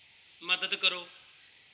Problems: background sounds at intervals